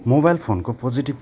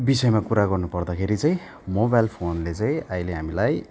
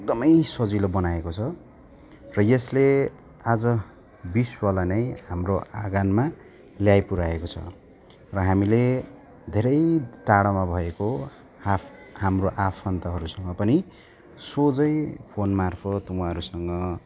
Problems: continuous background conversations